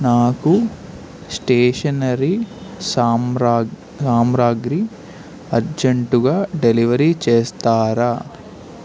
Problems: constant background noise